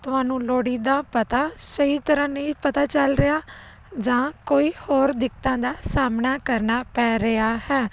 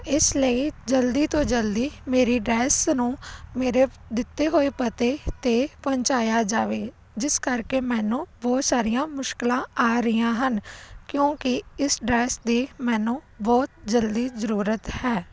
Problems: none marked